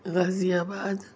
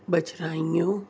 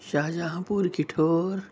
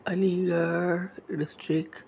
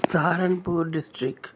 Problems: none marked